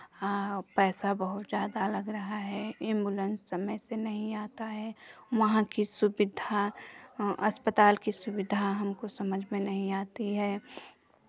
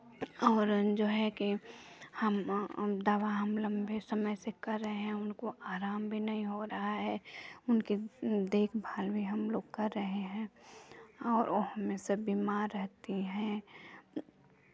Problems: none marked